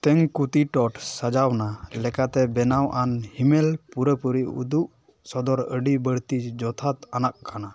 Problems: none marked